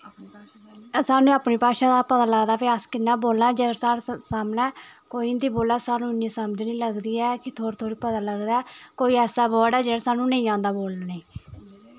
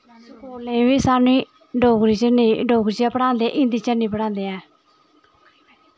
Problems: constant background noise, background conversations at intervals